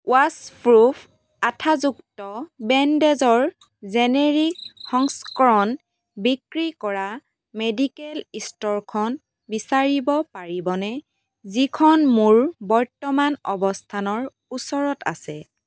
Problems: background sounds at intervals